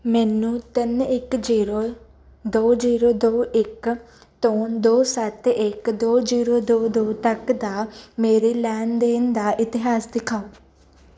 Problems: none marked